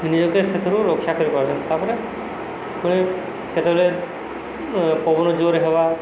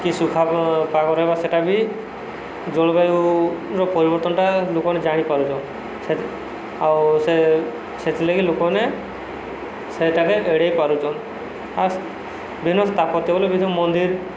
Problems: none marked